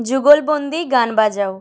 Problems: none marked